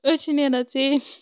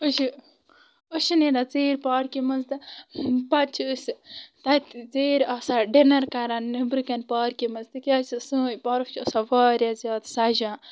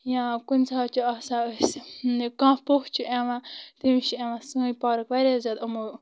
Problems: constant background noise